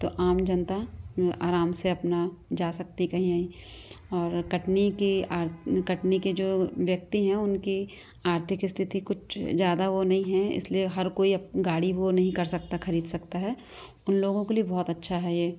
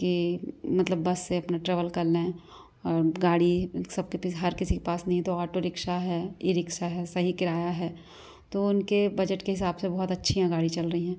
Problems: background sounds at intervals, background conversations at intervals